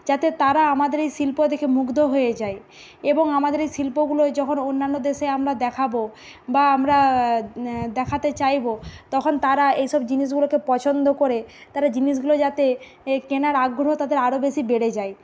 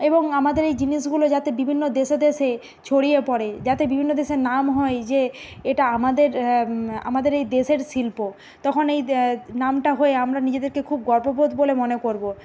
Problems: constant background noise